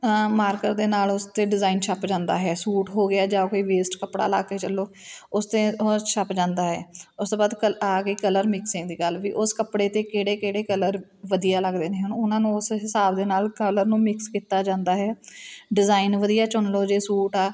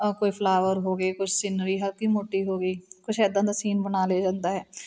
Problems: background sounds at intervals, background conversations at intervals